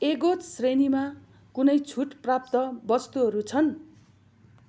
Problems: none marked